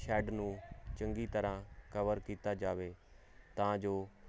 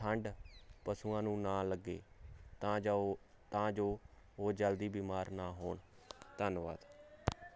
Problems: none marked